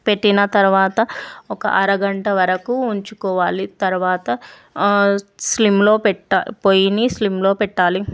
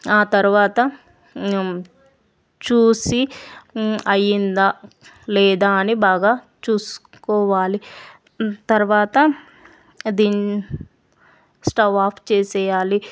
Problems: none marked